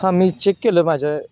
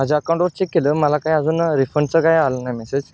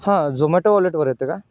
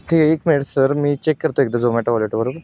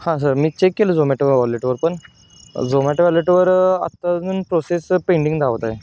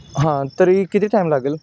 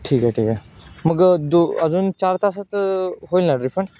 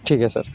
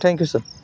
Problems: constant background noise, background conversations at intervals